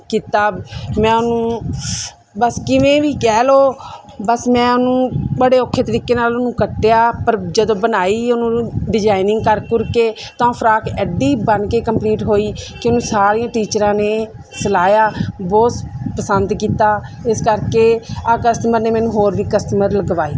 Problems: background sounds at intervals